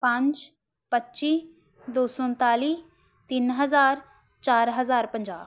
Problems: none marked